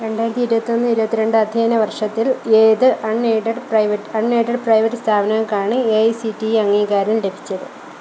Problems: constant background noise